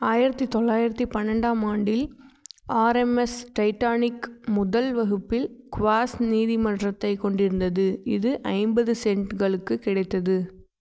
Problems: none marked